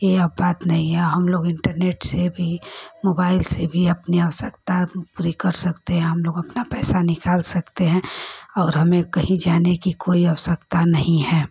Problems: constant background noise